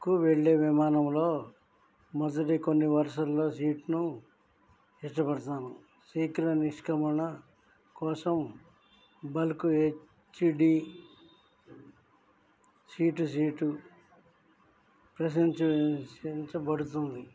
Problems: none marked